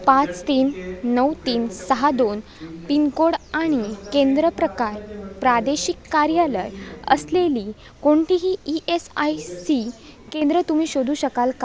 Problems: constant background noise, background conversations at intervals